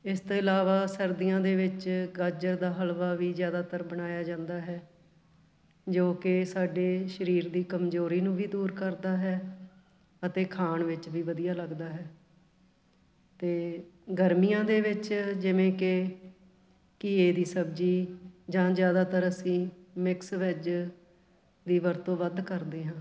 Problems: background sounds at intervals, background conversations at intervals